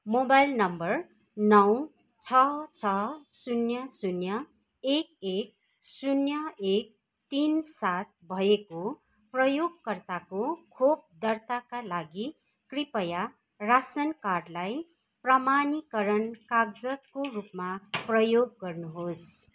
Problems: none marked